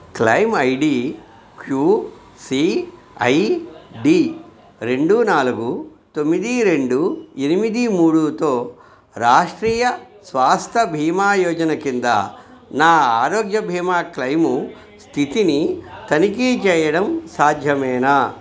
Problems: background conversations at intervals